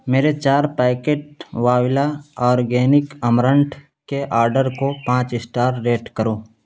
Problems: constant background noise